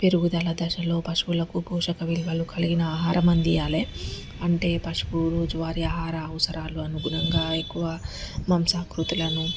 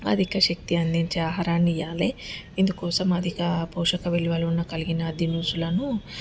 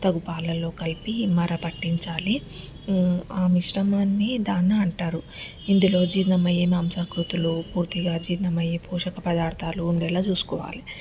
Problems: constant background noise